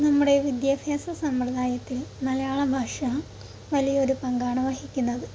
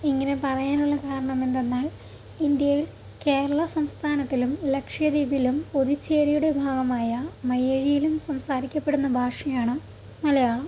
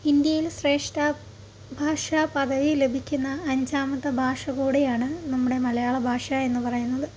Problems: constant background noise, low volume